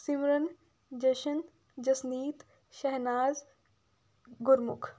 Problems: background sounds at intervals